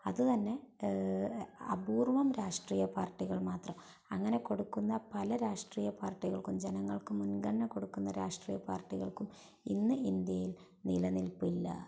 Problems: low volume